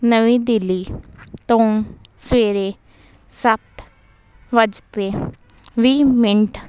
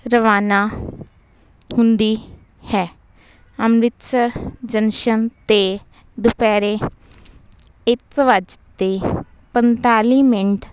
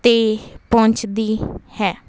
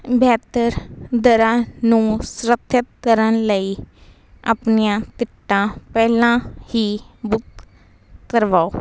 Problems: none marked